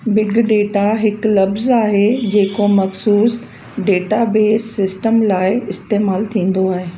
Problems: constant background noise, echo